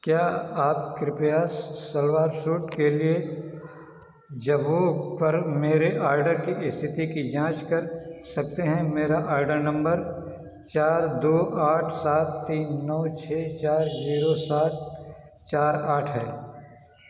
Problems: none marked